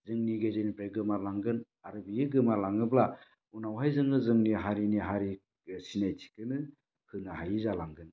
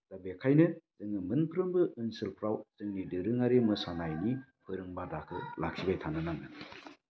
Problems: low volume